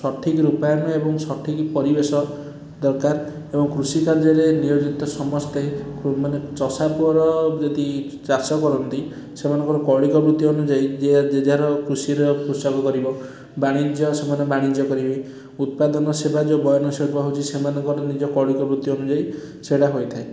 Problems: none marked